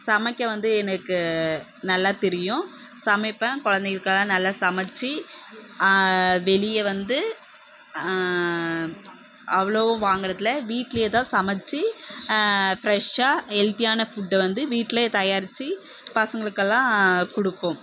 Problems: none marked